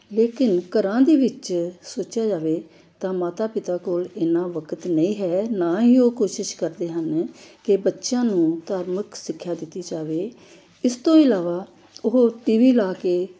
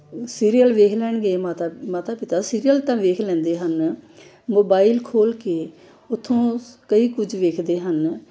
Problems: background sounds at intervals